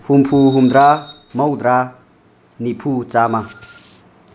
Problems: background sounds at intervals